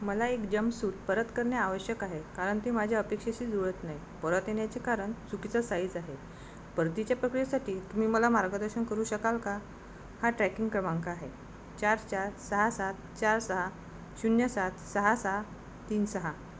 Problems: constant background noise